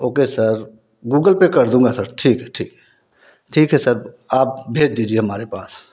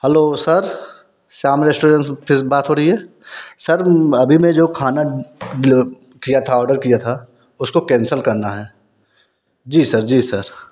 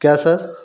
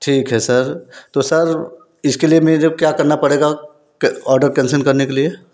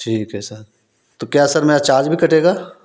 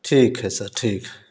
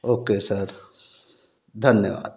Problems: background sounds at intervals